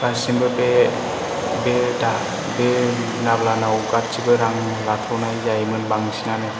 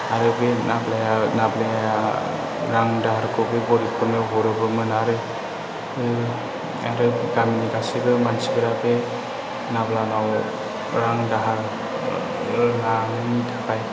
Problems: constant background noise, low volume